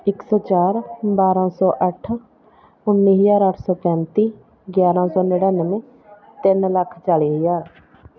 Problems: background conversations at intervals